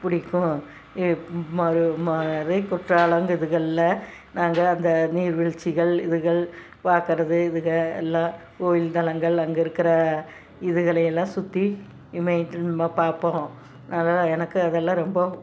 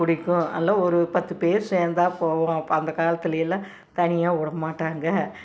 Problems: background sounds at intervals